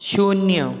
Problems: none marked